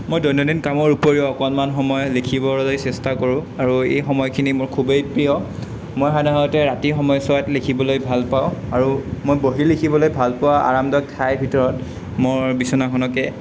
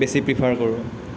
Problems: background sounds at intervals